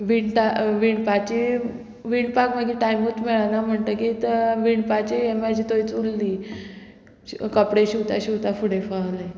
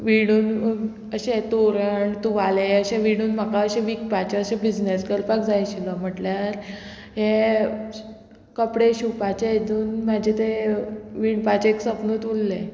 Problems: none marked